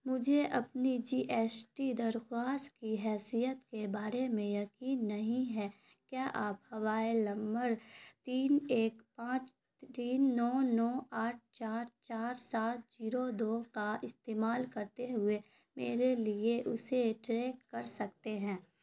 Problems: none marked